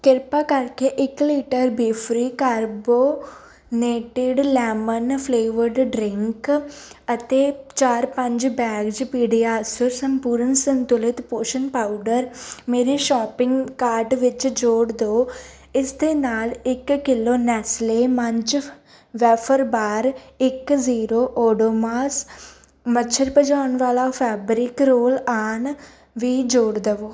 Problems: none marked